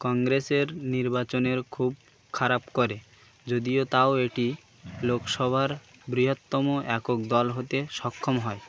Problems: none marked